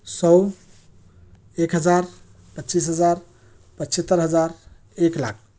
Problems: background sounds at intervals